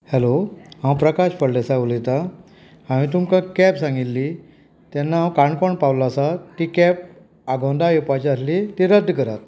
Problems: background conversations at intervals